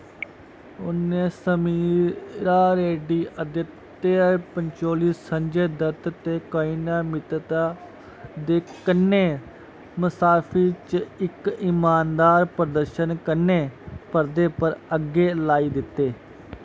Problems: constant background noise